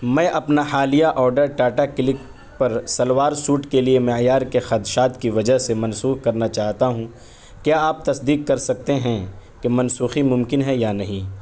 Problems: background sounds at intervals